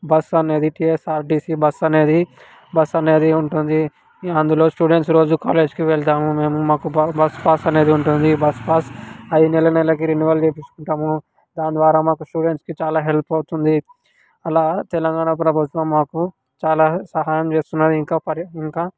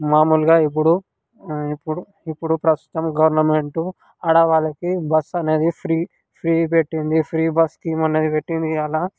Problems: none marked